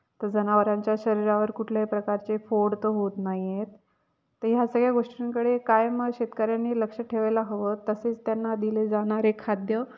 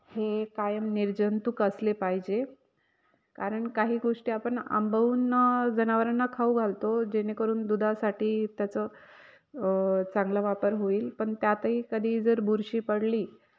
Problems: none marked